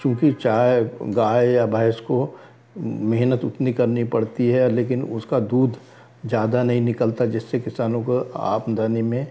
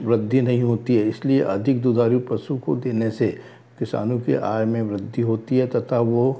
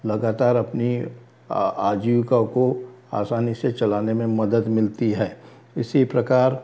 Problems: background sounds at intervals